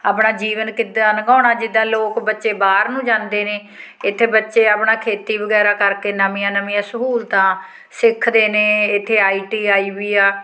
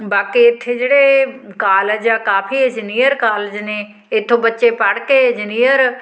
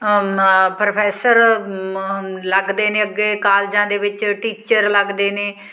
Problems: background sounds at intervals